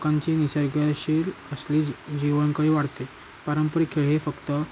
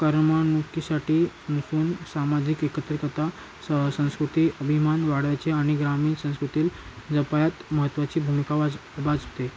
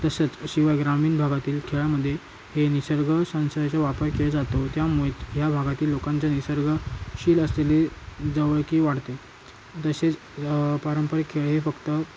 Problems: constant background noise